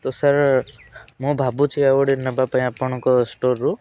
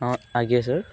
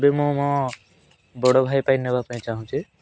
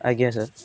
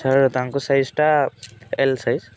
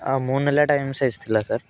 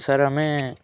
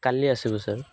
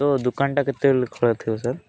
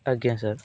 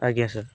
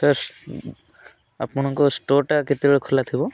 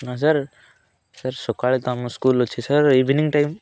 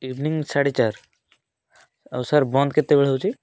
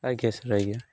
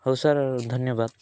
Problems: constant background noise